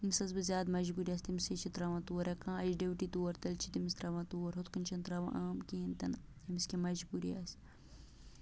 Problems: low volume